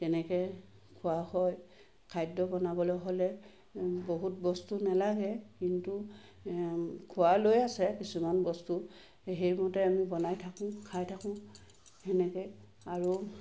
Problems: constant background noise